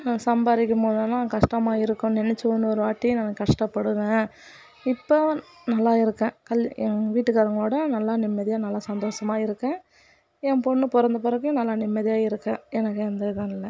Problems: background sounds at intervals, background conversations at intervals